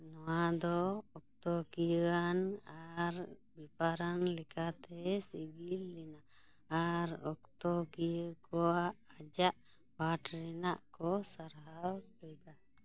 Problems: none marked